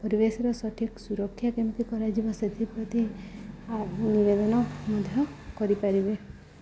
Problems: background sounds at intervals, background conversations at intervals